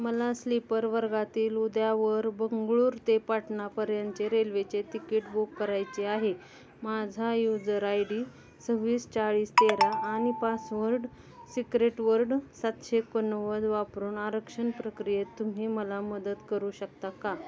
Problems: constant background noise, continuous background conversations